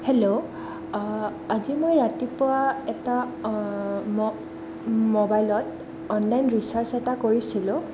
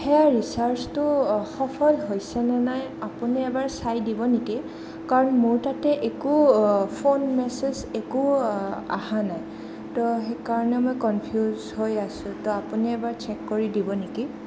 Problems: constant background noise